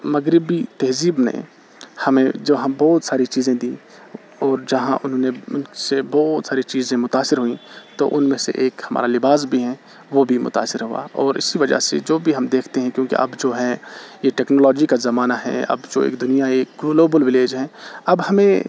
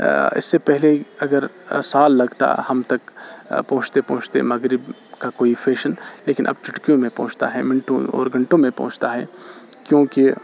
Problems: constant background noise